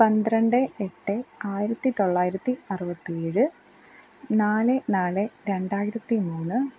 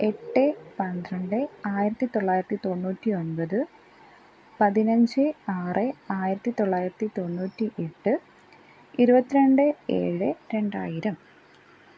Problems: none marked